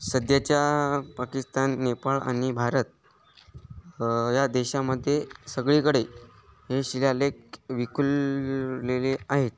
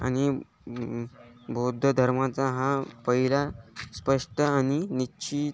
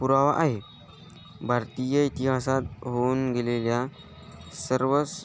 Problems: none marked